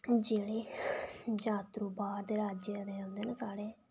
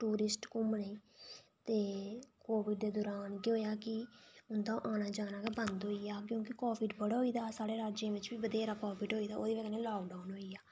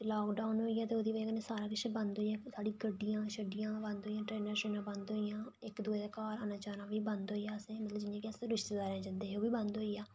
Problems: low volume